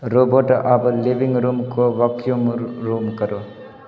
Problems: constant background noise, background conversations at intervals